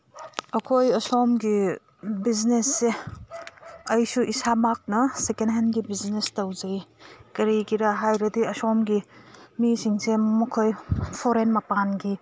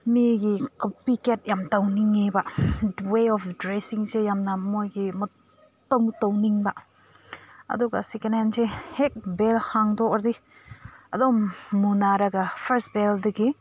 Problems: background sounds at intervals